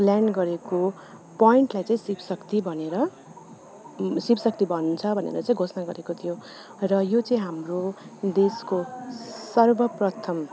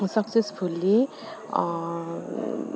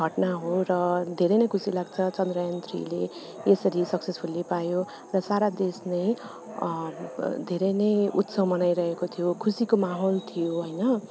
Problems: none marked